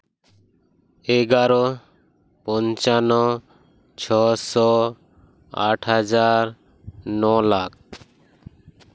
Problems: constant background noise